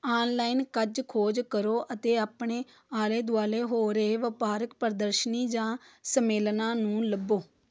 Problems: background sounds at intervals